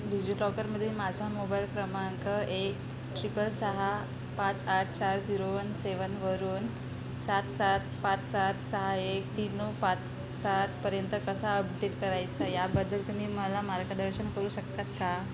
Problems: constant background noise